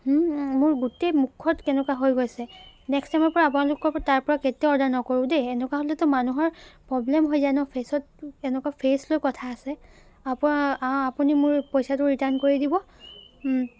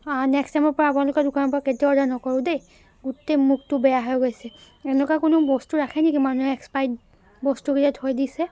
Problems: constant background noise